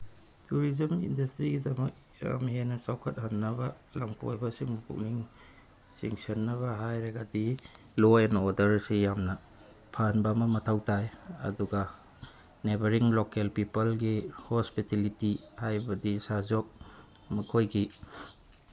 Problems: constant background noise, low volume